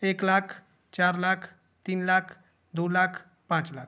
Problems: constant background noise